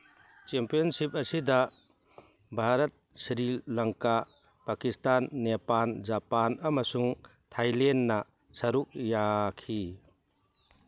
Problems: background sounds at intervals